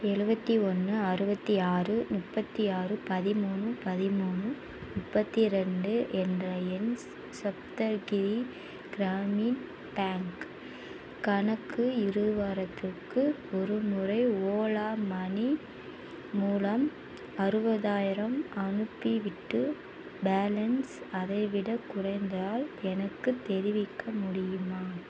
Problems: none marked